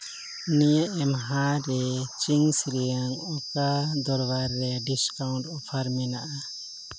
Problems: background sounds at intervals